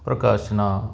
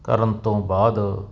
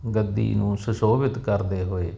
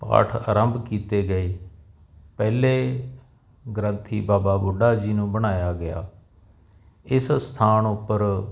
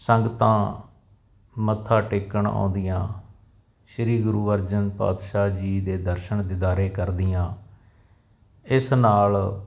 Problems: none marked